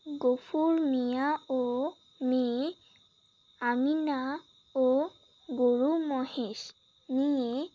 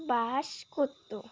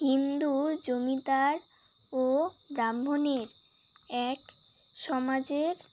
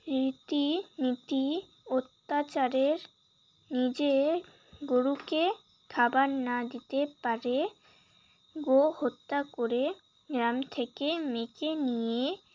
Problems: none marked